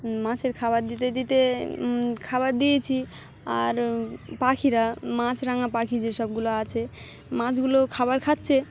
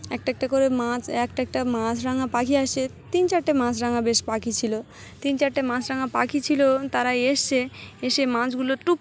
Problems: background sounds at intervals, background conversations at intervals